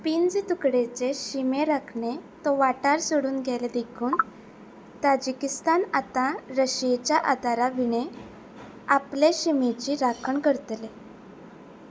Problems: constant background noise